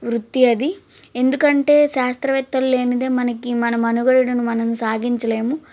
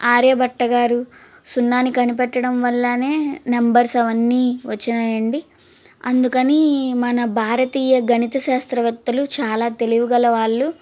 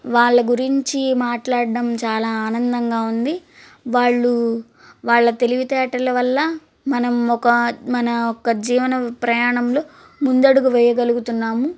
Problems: constant background noise